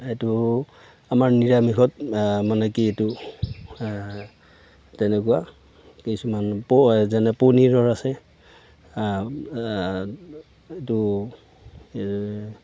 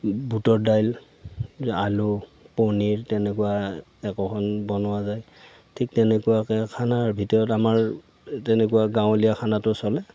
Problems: none marked